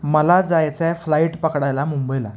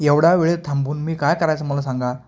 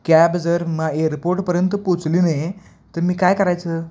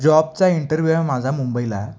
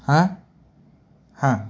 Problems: none marked